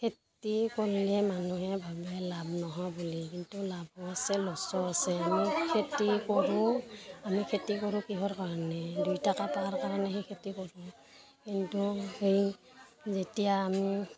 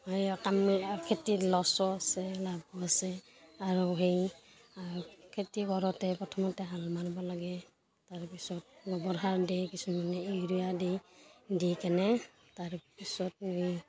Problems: continuous background conversations